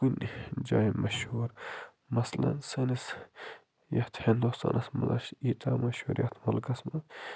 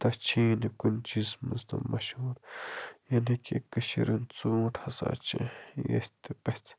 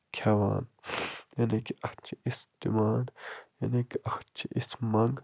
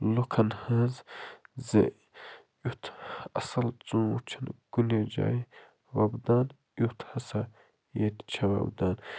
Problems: low volume